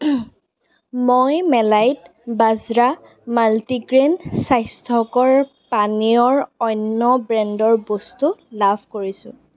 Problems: background conversations at intervals